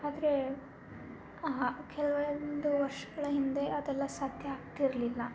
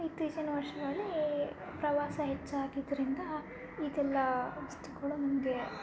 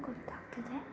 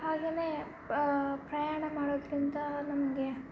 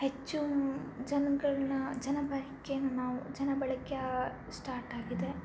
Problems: constant background noise, low volume